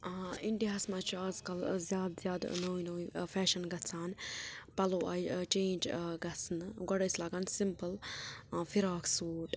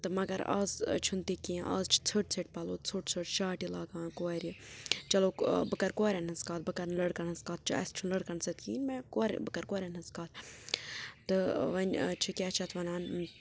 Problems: background sounds at intervals, low volume